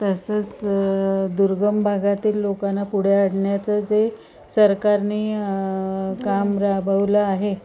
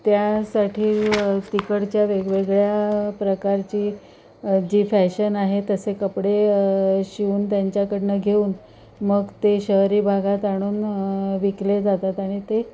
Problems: constant background noise, continuous background conversations